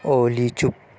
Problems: constant background noise